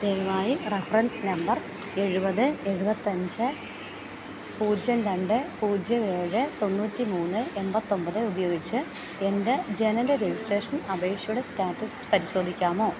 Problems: constant background noise, low volume